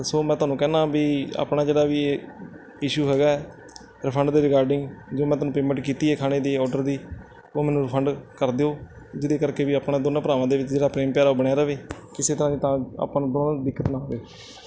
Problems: background sounds at intervals